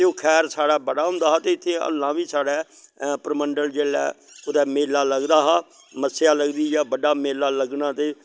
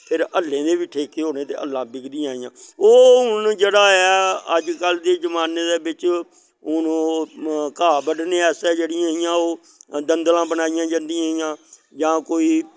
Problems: none marked